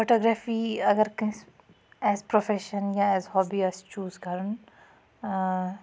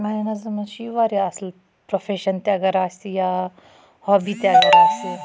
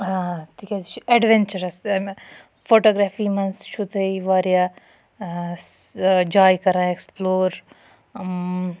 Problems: none marked